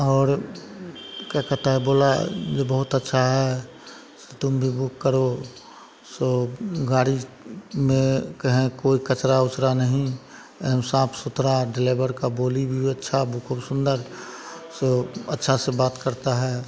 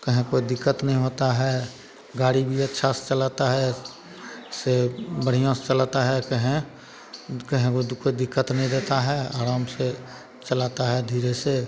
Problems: constant background noise, continuous background conversations